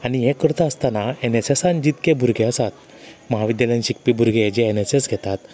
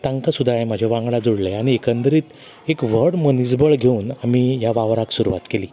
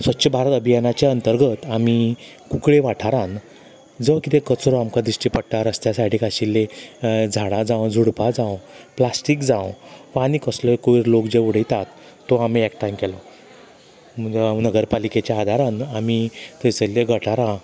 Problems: constant background noise